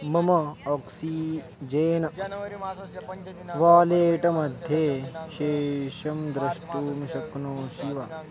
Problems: continuous background conversations